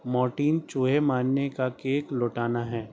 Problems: none marked